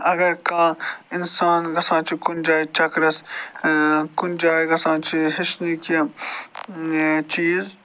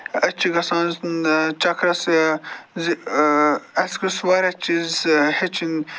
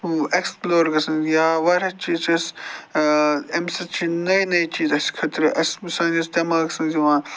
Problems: constant background noise